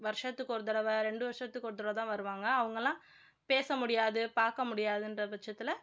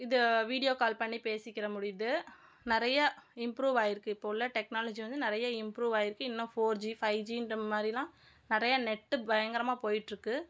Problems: none marked